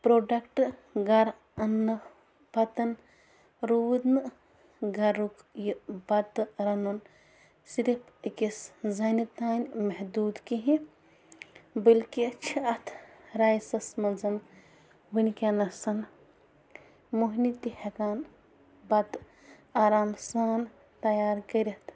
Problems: background sounds at intervals, background conversations at intervals